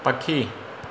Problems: constant background noise, echo